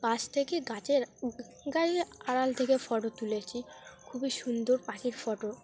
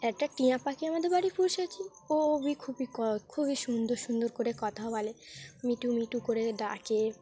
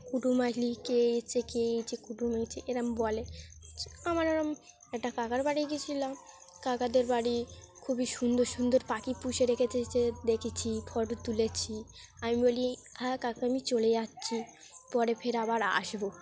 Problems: background sounds at intervals